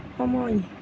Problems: none marked